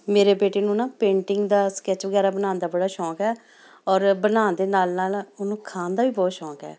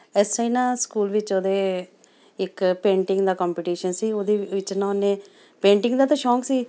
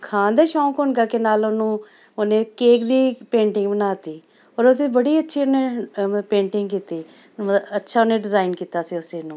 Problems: none marked